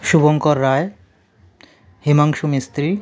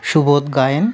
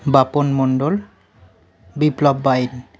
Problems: background conversations at intervals